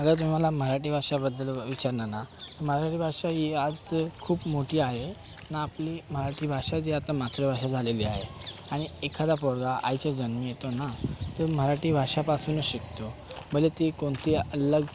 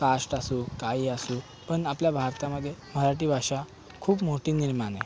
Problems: background sounds at intervals